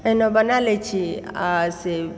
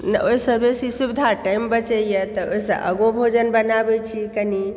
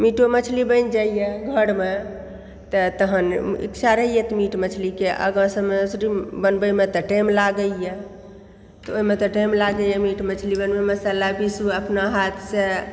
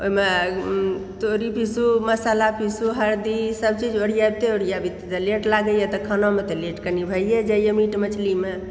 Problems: background sounds at intervals